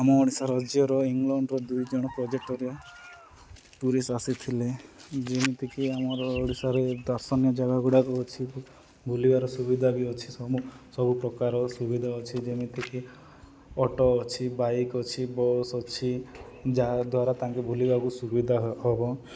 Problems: none marked